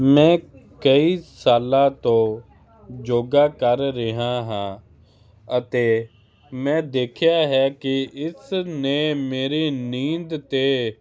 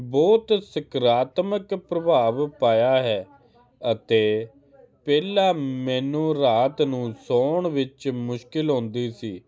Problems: none marked